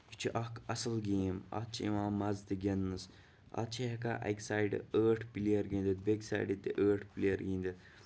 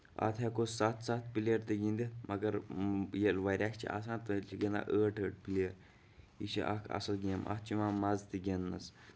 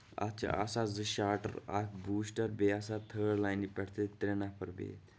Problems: none marked